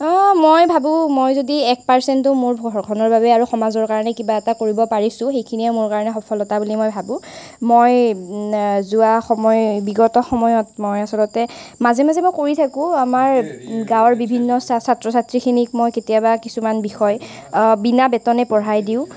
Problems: constant background noise